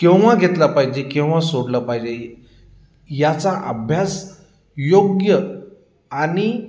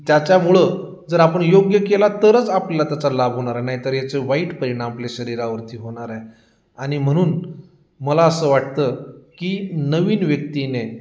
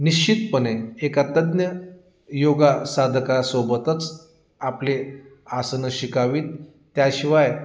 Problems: constant background noise